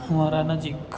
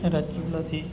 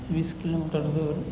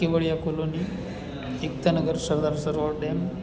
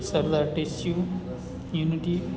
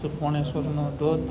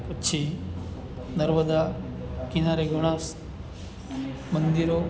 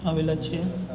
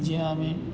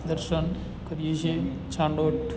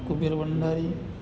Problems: constant background noise